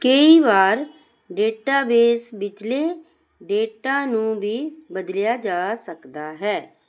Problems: none marked